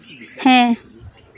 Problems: constant background noise